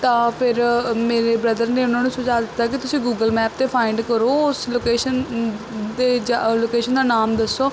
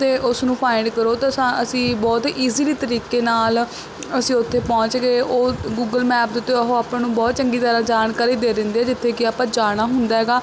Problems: constant background noise